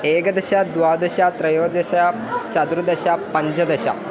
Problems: none marked